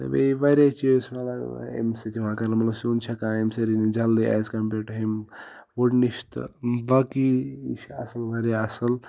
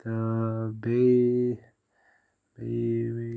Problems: background sounds at intervals